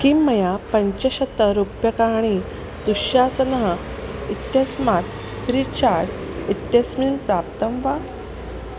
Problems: constant background noise